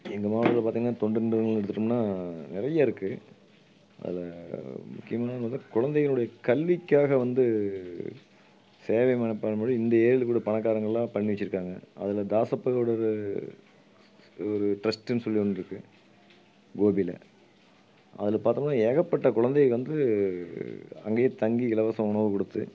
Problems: background sounds at intervals